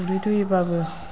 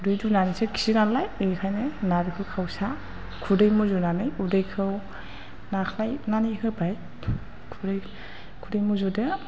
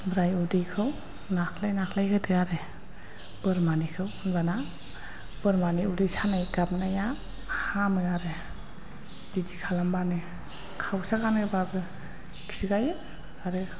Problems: none marked